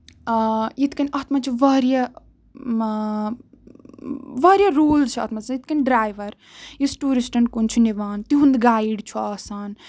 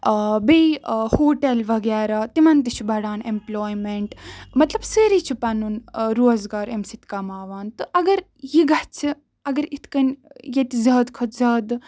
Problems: none marked